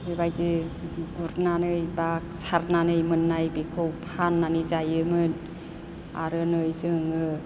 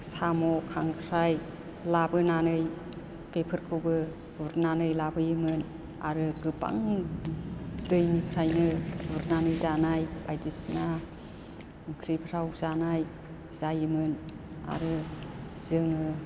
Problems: none marked